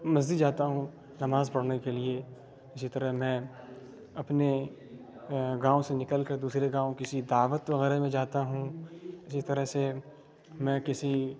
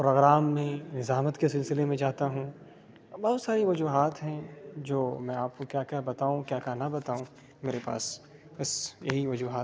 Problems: constant background noise